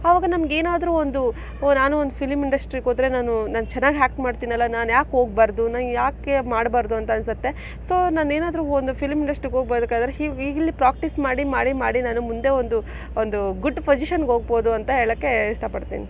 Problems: none marked